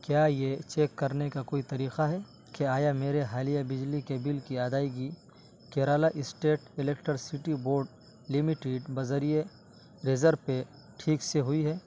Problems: constant background noise